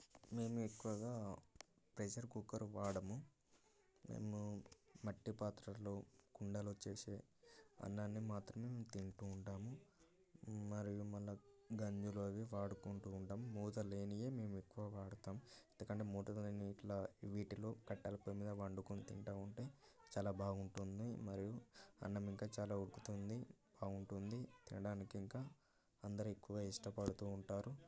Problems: continuous background conversations, low volume